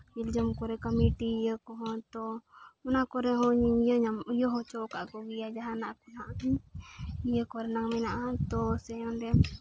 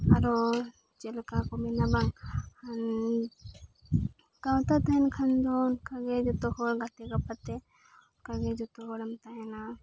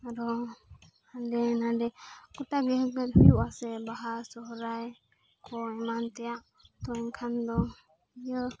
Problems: background sounds at intervals, background conversations at intervals